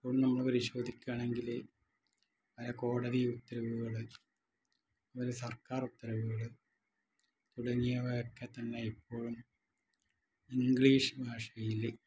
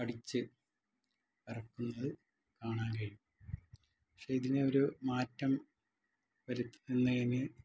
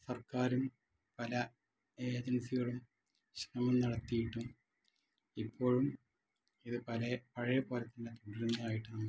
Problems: low volume